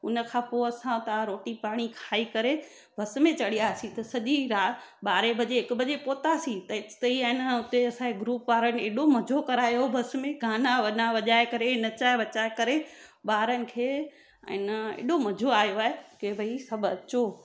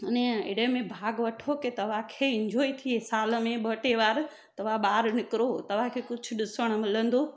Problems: none marked